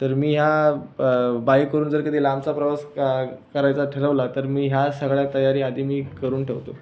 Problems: none marked